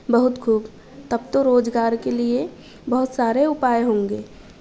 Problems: none marked